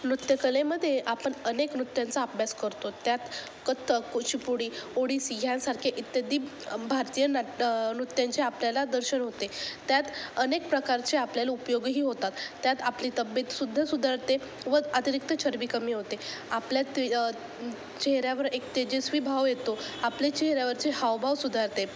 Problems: constant background noise